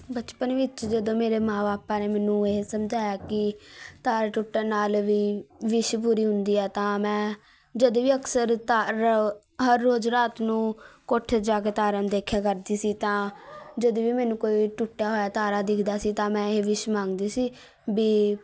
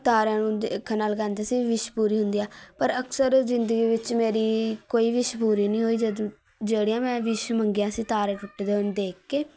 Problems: constant background noise, continuous background conversations